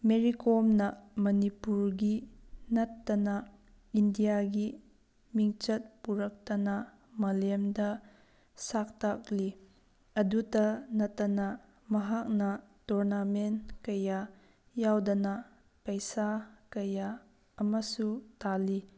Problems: background sounds at intervals